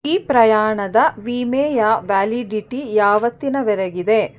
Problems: none marked